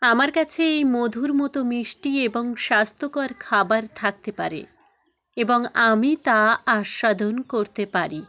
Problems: continuous background conversations